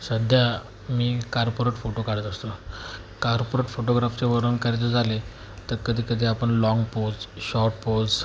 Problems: constant background noise